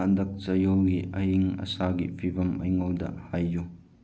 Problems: low volume